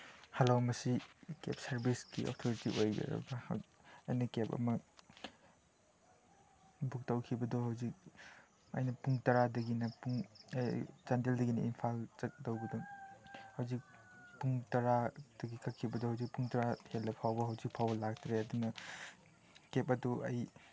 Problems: background sounds at intervals, background conversations at intervals